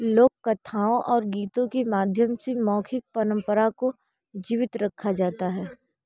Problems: background sounds at intervals